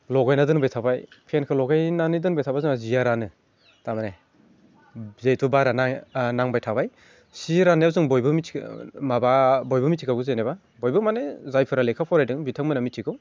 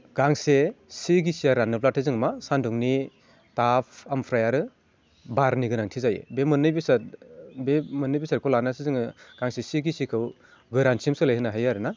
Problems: none marked